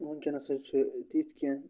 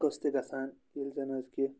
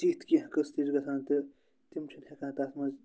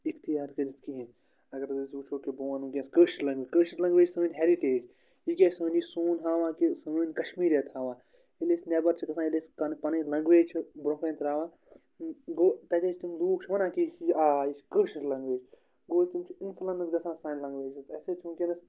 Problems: none marked